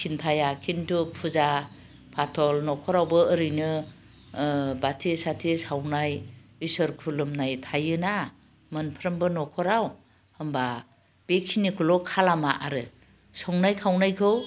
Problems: none marked